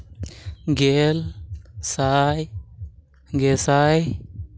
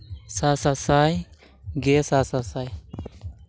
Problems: constant background noise